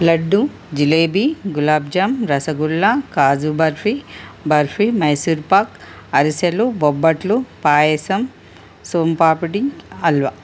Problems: constant background noise